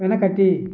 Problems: constant background noise